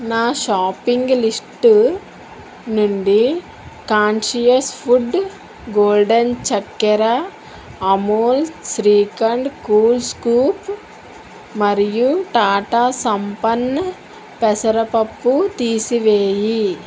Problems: constant background noise